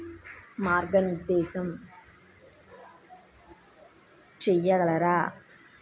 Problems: constant background noise